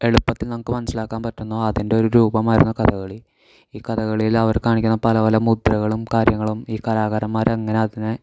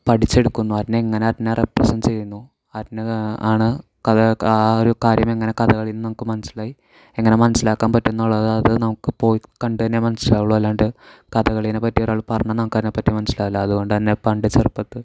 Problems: none marked